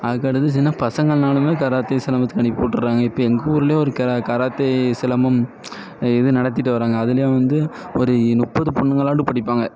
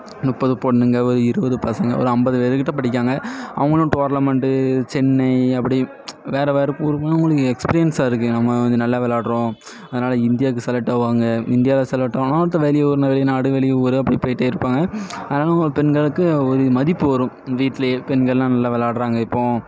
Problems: none marked